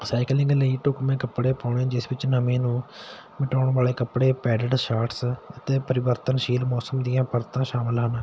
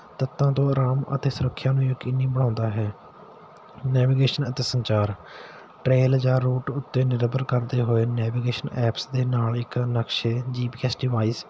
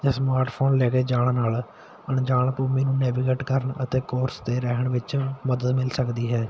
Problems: constant background noise